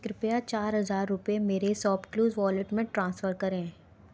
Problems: none marked